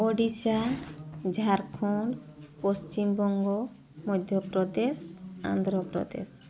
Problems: constant background noise